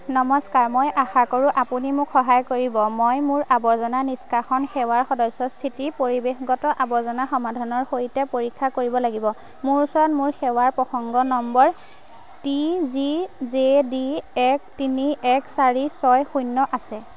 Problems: none marked